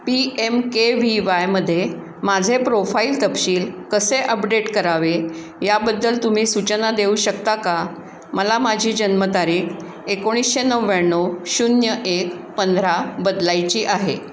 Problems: background sounds at intervals